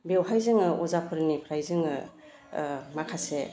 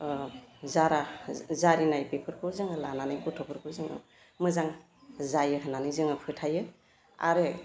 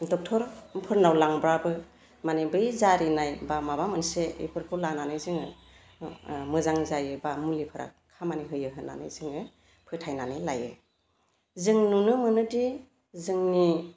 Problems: constant background noise